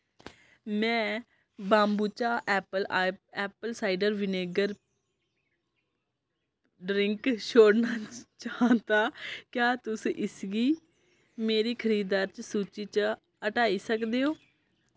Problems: background conversations at intervals